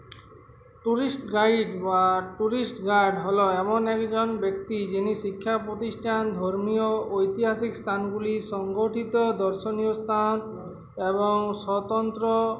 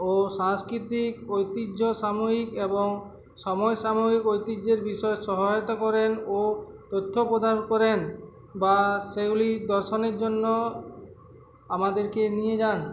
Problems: constant background noise, continuous background conversations